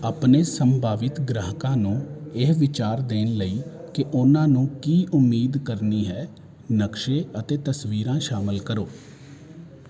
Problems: constant background noise